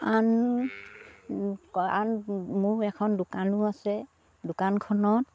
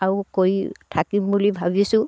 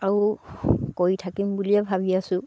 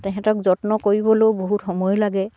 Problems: none marked